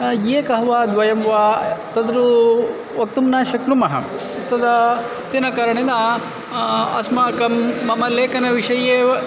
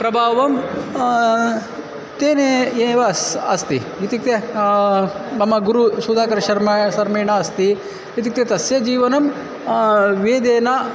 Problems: constant background noise, continuous background conversations